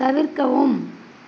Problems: constant background noise